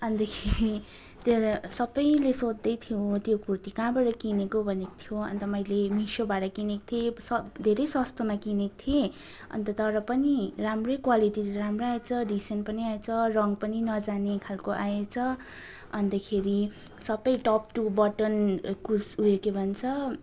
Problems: continuous background conversations